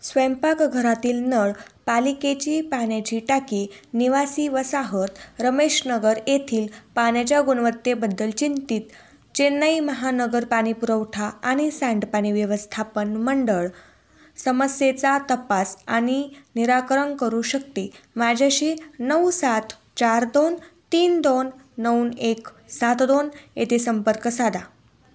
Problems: background sounds at intervals